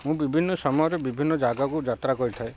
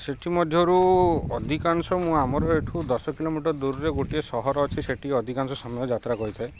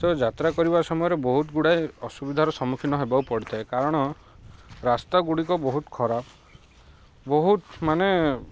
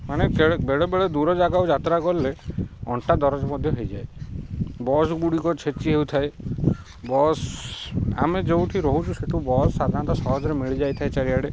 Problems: background sounds at intervals